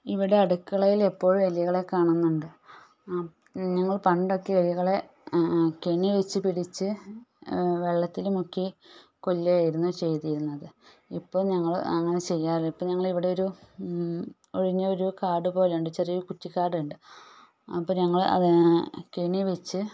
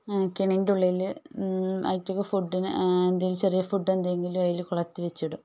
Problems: none marked